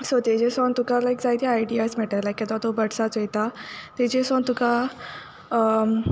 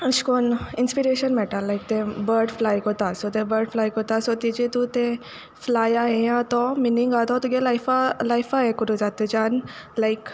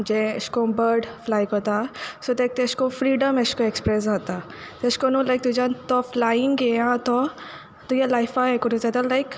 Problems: background sounds at intervals